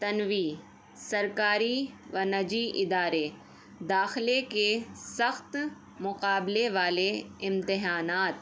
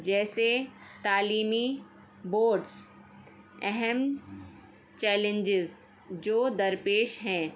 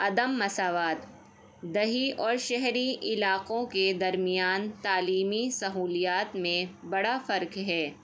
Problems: none marked